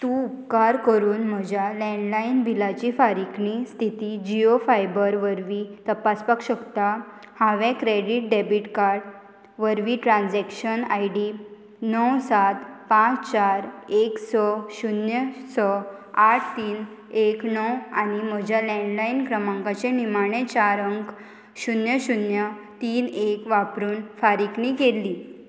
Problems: constant background noise